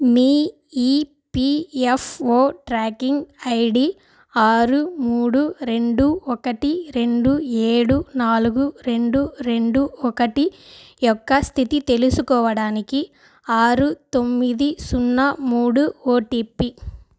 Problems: constant background noise